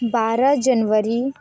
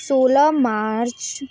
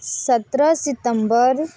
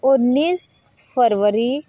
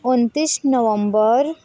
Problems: constant background noise, background conversations at intervals